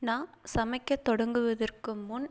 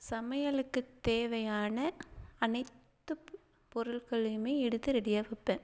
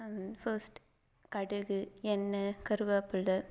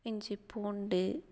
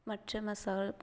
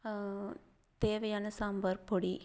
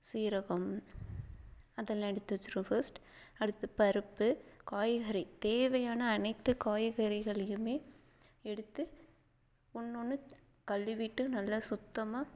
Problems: background sounds at intervals, low volume